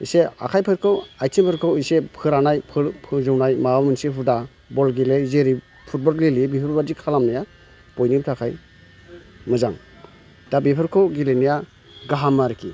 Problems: constant background noise